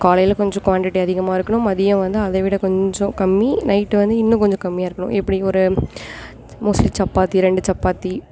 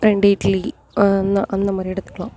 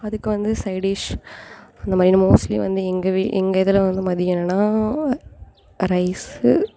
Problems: constant background noise